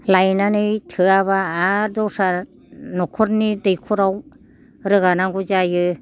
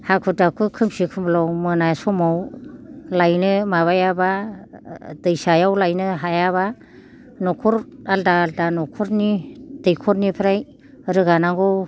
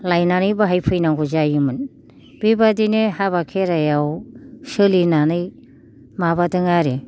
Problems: none marked